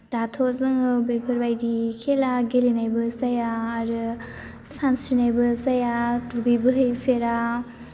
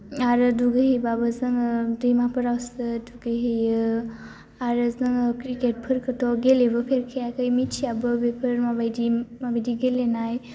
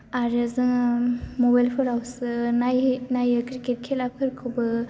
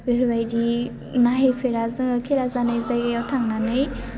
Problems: low volume